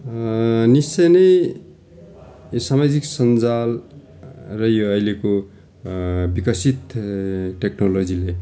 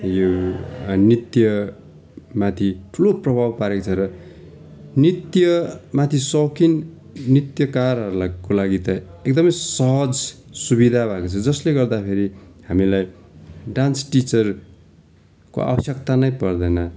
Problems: continuous background conversations